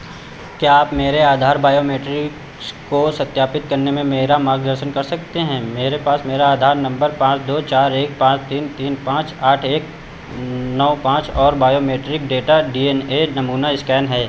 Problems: constant background noise